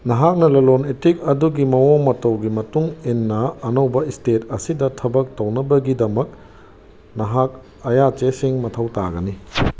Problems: none marked